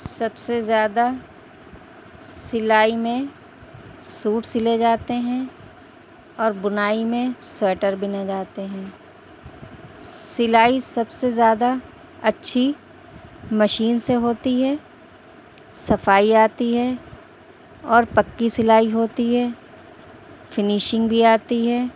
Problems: constant background noise